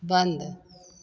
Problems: none marked